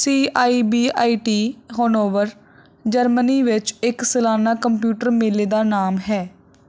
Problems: none marked